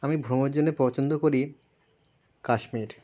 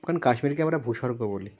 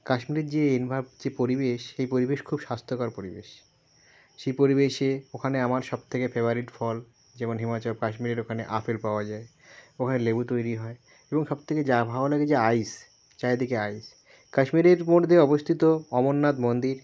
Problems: background sounds at intervals